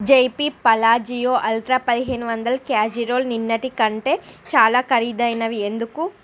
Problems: constant background noise